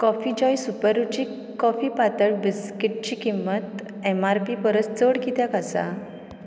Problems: background sounds at intervals